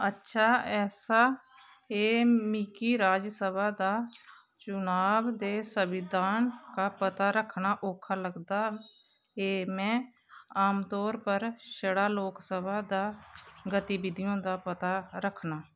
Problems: constant background noise, background conversations at intervals